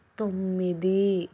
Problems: none marked